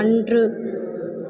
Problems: constant background noise